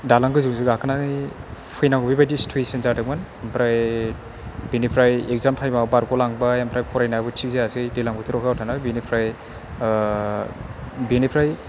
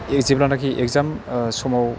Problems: none marked